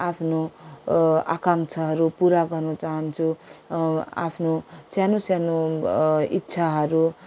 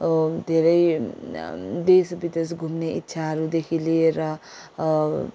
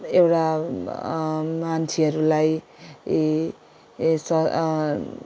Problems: none marked